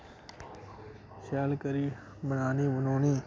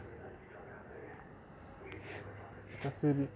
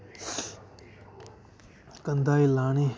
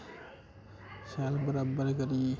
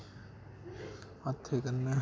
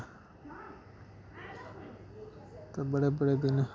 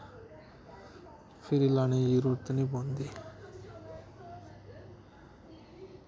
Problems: constant background noise